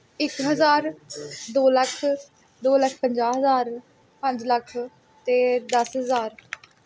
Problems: none marked